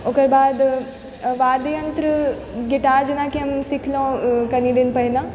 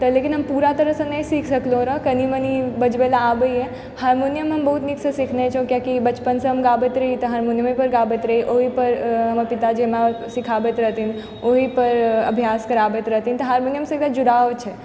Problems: constant background noise